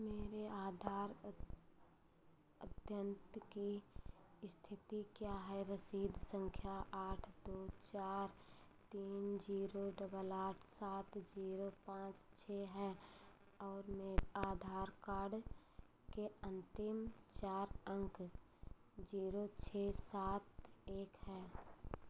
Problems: none marked